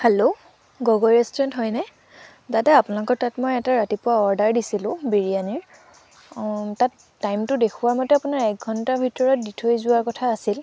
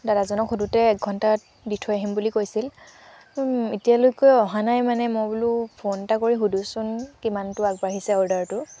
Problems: constant background noise